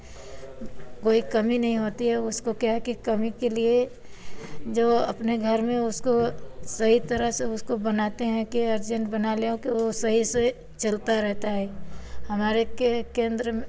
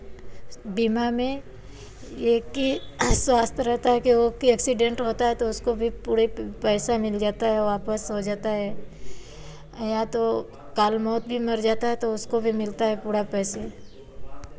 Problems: background sounds at intervals, background conversations at intervals